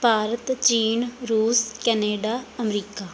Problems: background sounds at intervals